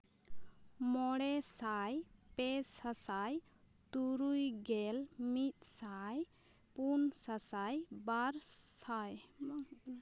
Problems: constant background noise